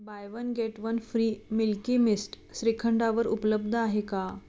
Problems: background sounds at intervals